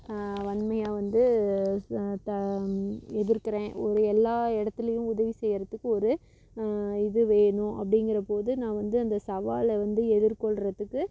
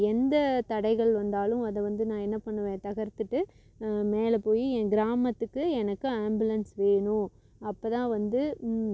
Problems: none marked